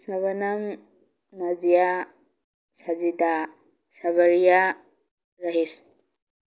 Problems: none marked